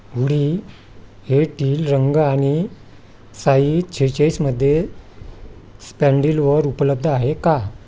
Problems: constant background noise